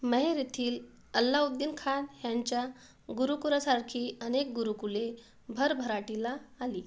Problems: background sounds at intervals